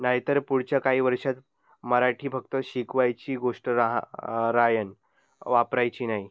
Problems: none marked